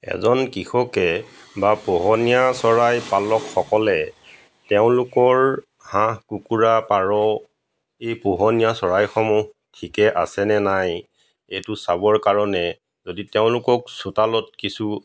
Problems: background sounds at intervals